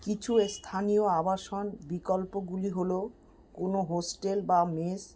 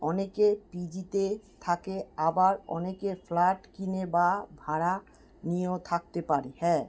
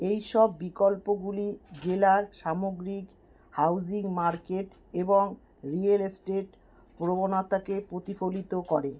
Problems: background sounds at intervals